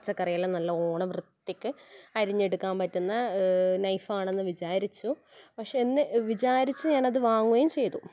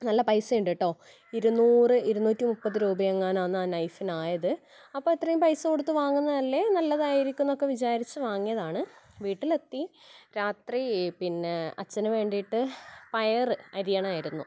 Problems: background sounds at intervals